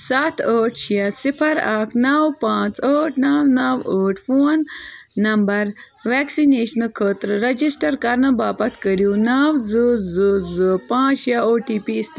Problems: background sounds at intervals, continuous background conversations